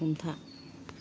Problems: low volume